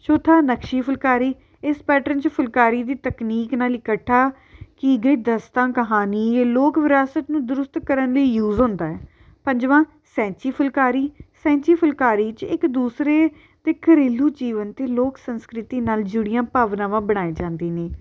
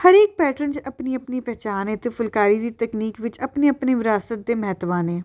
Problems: background sounds at intervals